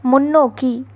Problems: none marked